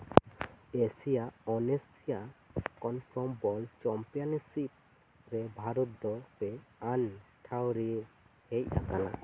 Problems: constant background noise